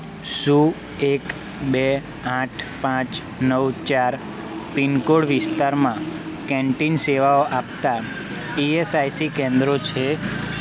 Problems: constant background noise